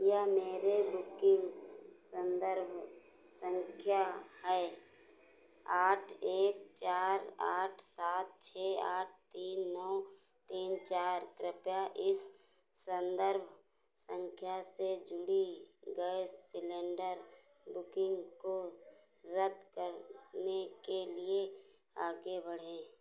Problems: none marked